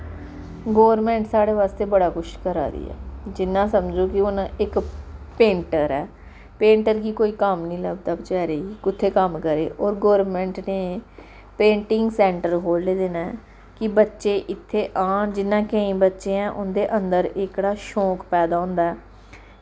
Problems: background sounds at intervals